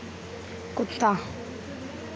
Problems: constant background noise, low volume